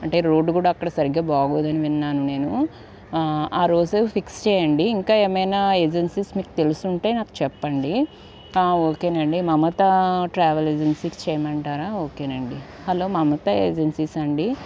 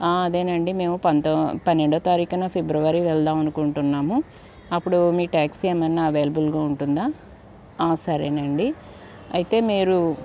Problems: none marked